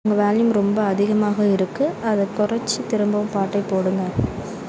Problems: constant background noise